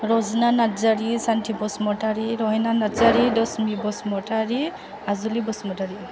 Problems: none marked